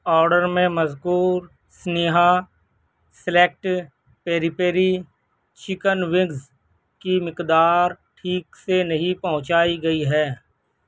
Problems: none marked